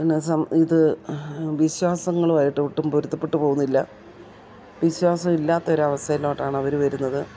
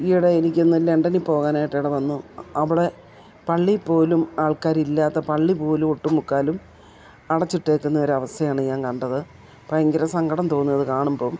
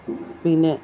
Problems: background sounds at intervals